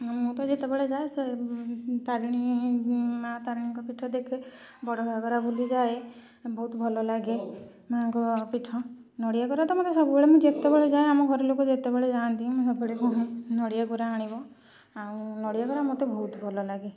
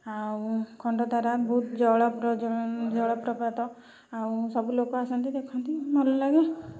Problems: constant background noise